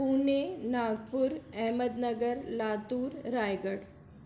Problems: constant background noise